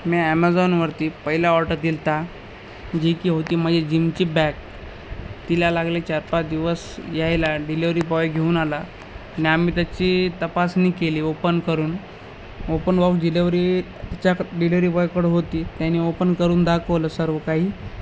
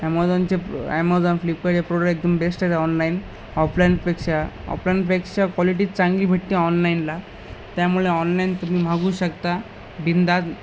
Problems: none marked